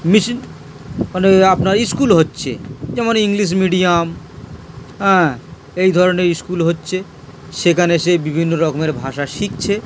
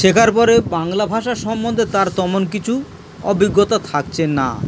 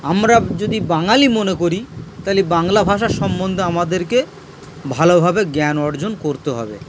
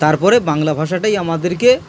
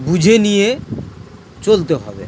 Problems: constant background noise